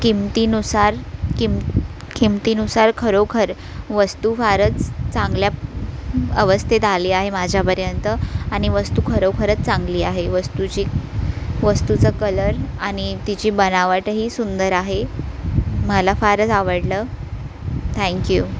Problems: constant background noise